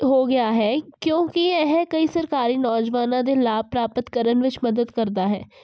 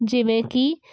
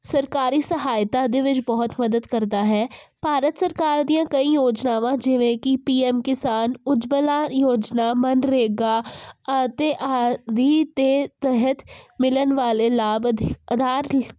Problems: constant background noise